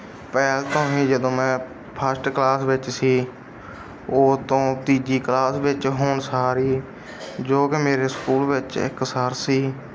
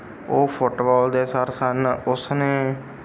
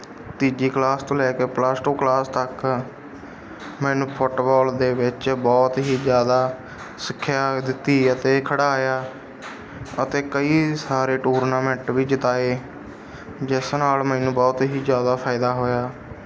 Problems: background sounds at intervals